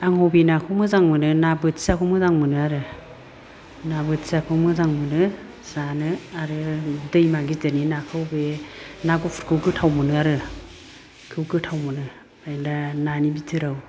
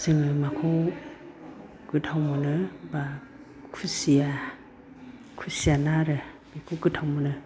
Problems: none marked